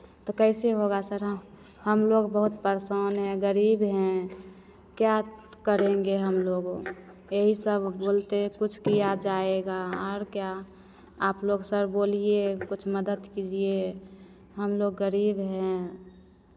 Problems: constant background noise, echo